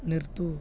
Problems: low volume